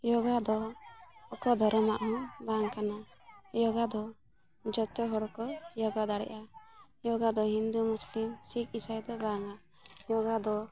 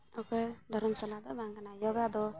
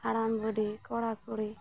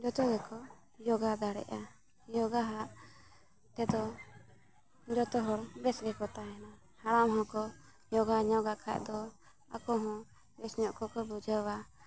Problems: background sounds at intervals, continuous background conversations